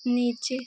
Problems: constant background noise